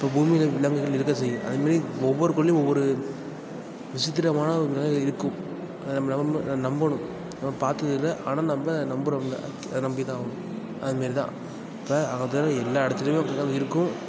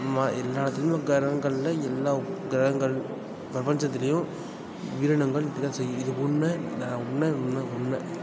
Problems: background sounds at intervals